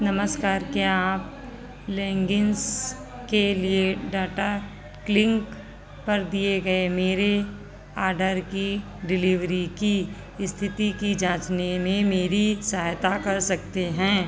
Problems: none marked